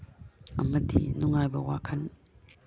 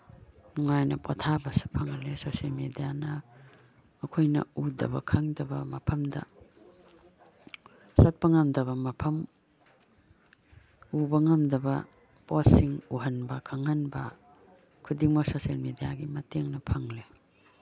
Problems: background conversations at intervals